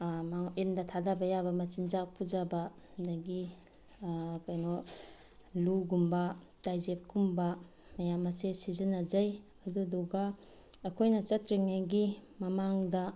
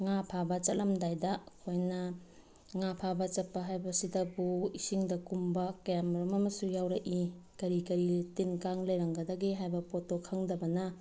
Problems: background sounds at intervals